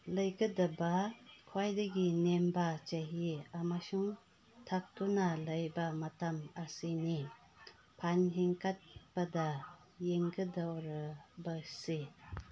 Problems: background conversations at intervals